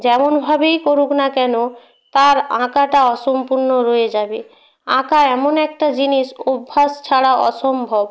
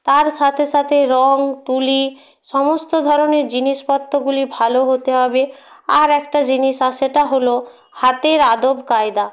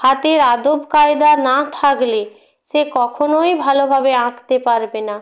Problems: none marked